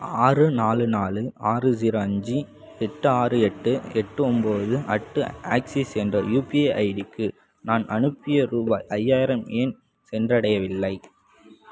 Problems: background sounds at intervals